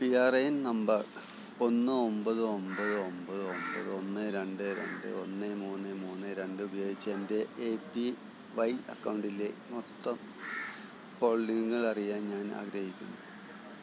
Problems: constant background noise, low volume